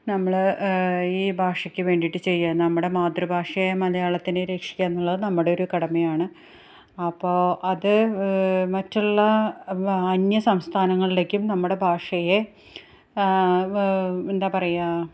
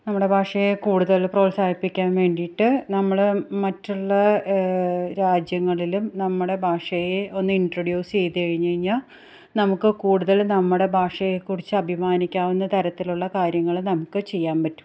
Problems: none marked